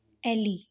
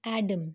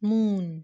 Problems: constant background noise